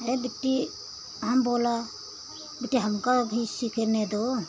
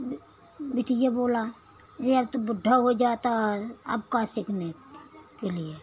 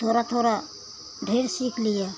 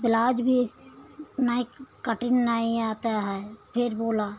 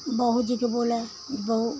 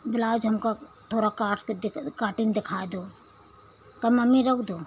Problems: constant background noise